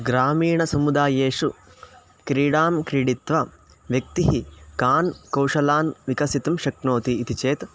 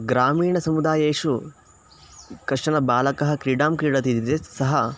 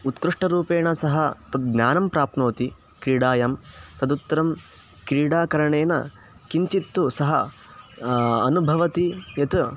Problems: constant background noise